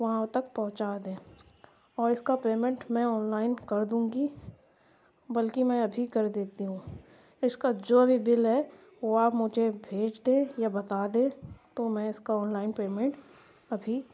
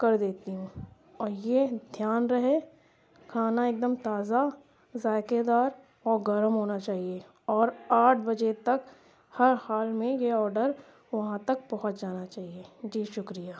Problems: constant background noise